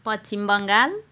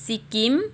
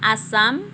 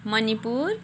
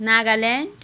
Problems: background sounds at intervals